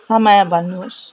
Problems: constant background noise